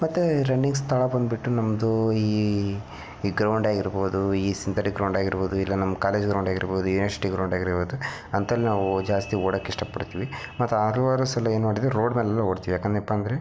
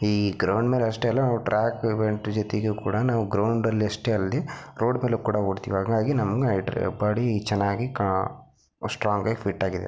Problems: background sounds at intervals